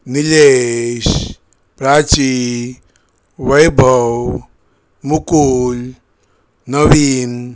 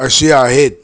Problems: none marked